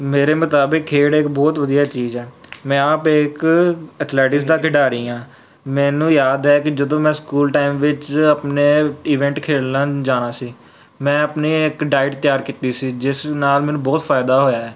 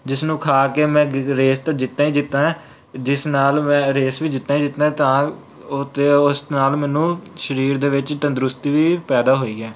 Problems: background sounds at intervals